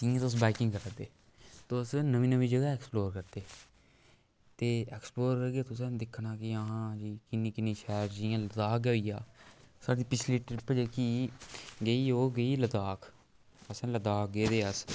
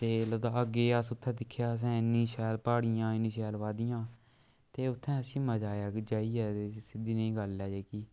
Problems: background sounds at intervals